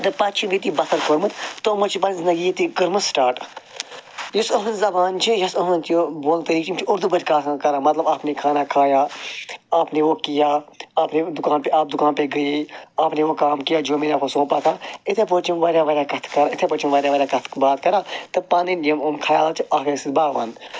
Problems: none marked